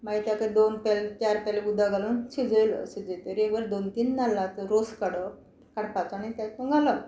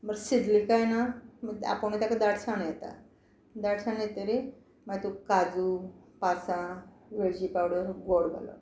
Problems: constant background noise